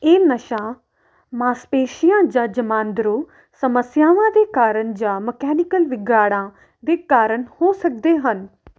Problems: none marked